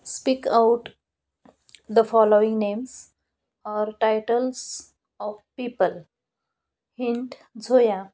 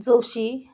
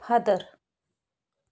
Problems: background sounds at intervals